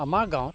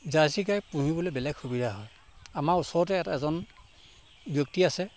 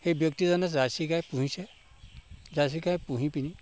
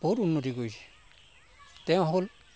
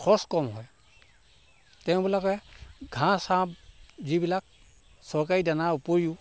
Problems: constant background noise